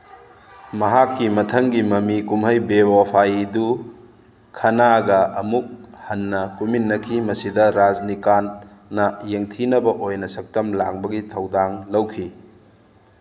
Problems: background sounds at intervals